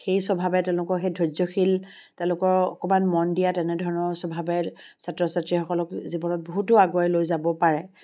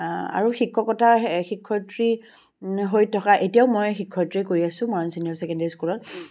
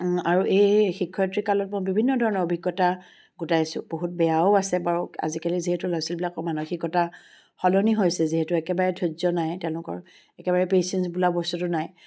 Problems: background sounds at intervals